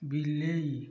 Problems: low volume